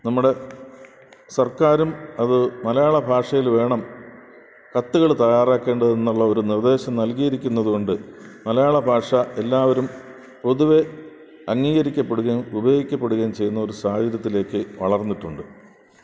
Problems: constant background noise